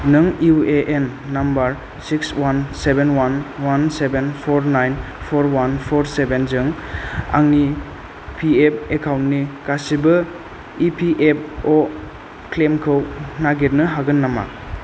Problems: constant background noise